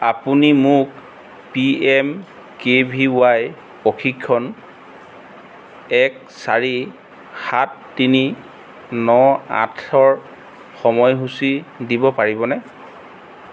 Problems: none marked